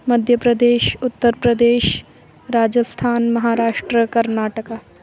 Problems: constant background noise